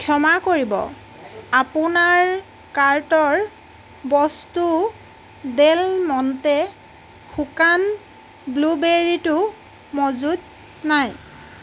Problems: constant background noise, background conversations at intervals